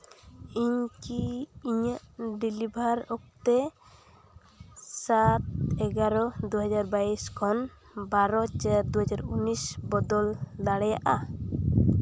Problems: constant background noise